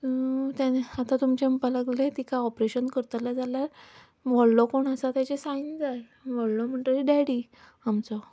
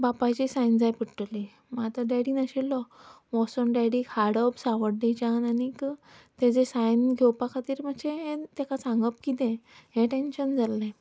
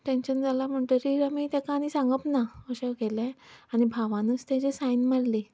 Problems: background sounds at intervals